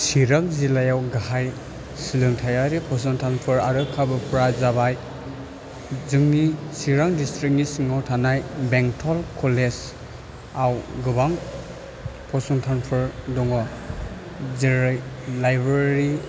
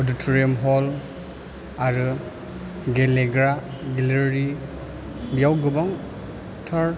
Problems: constant background noise